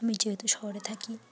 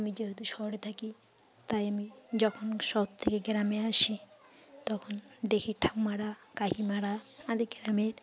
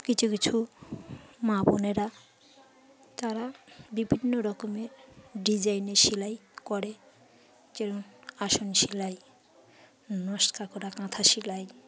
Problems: background sounds at intervals, background conversations at intervals